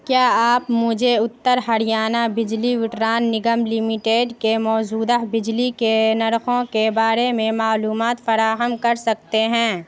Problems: constant background noise